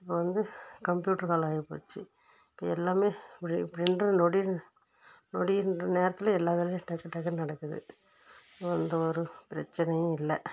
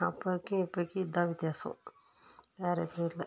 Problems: background sounds at intervals